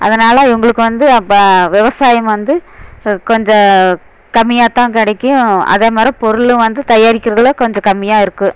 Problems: constant background noise